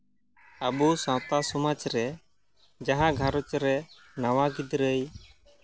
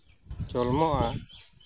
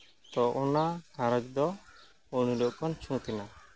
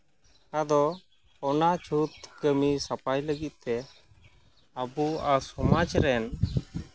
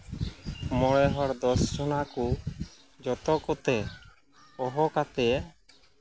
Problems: constant background noise